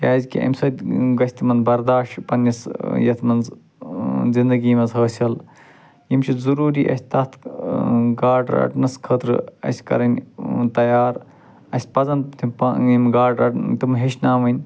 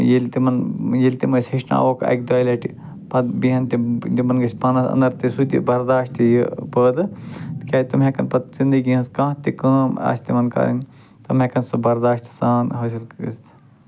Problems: constant background noise